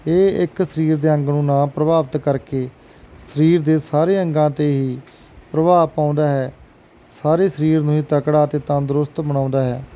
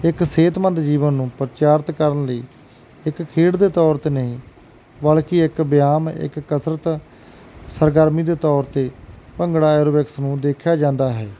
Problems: none marked